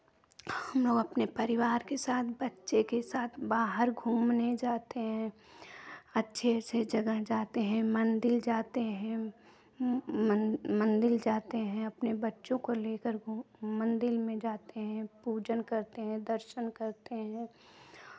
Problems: background sounds at intervals, background conversations at intervals